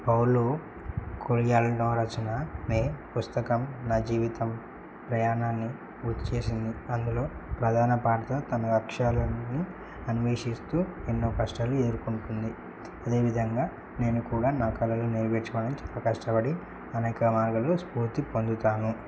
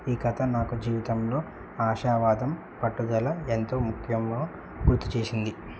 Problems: low volume